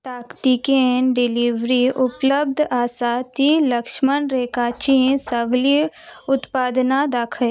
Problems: background conversations at intervals